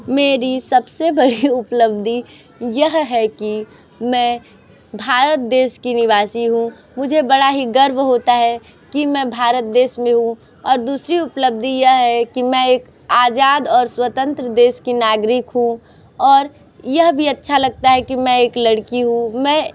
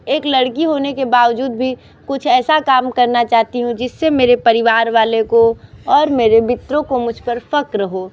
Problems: constant background noise, continuous background conversations